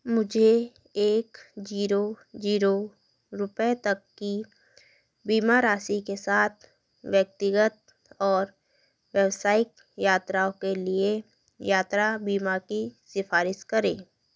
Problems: none marked